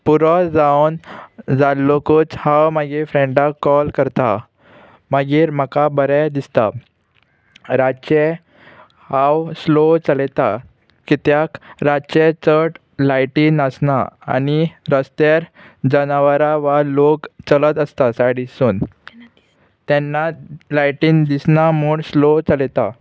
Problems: constant background noise